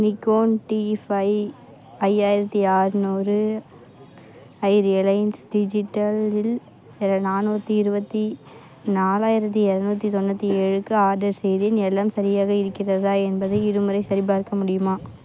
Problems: constant background noise, continuous background conversations